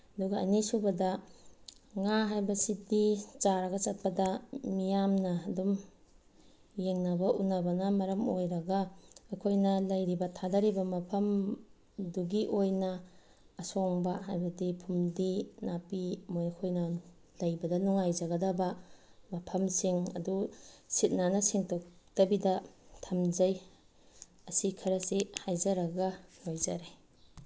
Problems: background sounds at intervals